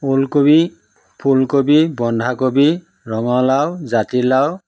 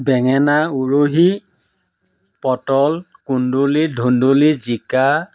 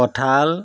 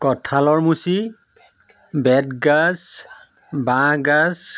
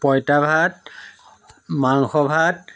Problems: none marked